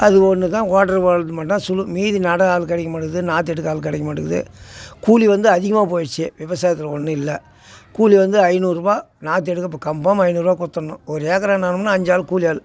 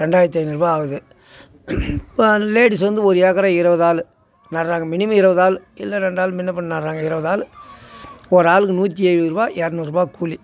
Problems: constant background noise